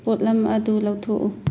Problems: low volume